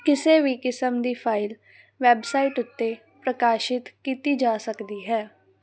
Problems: background sounds at intervals